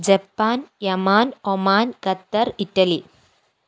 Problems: none marked